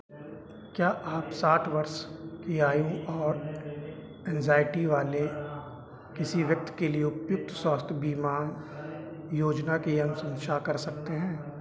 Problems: none marked